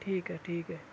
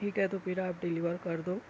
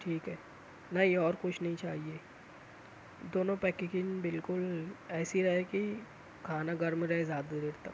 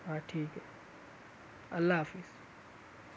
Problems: constant background noise, low volume